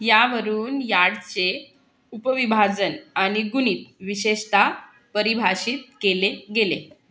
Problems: none marked